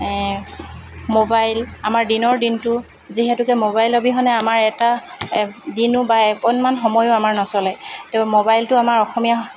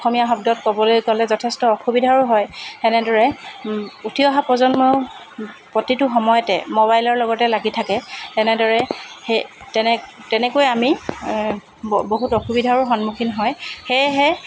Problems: constant background noise